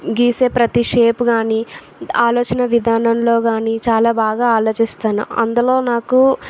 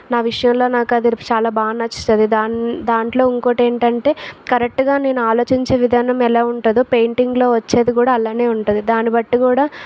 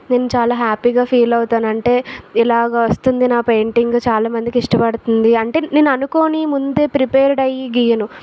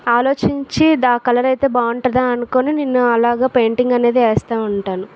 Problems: constant background noise